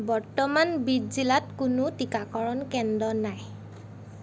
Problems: background sounds at intervals